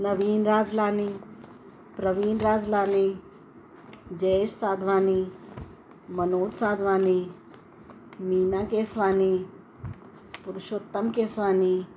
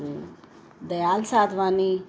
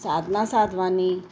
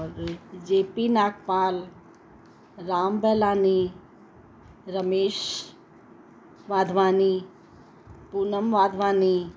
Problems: constant background noise, echo